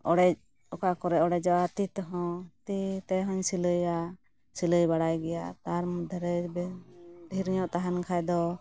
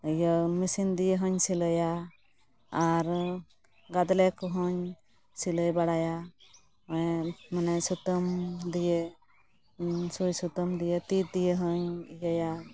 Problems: none marked